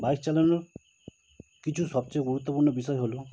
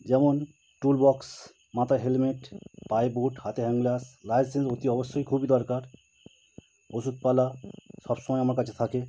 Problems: constant background noise